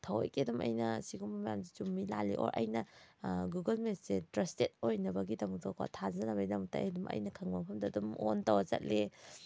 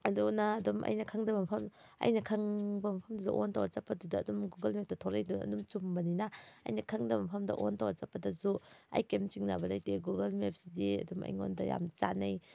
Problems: background sounds at intervals